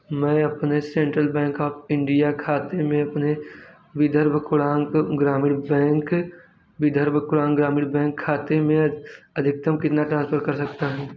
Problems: background sounds at intervals